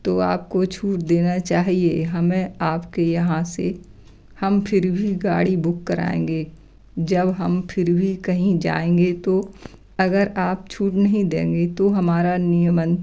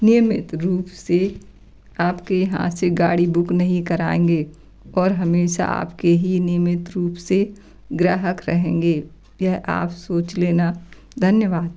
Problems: none marked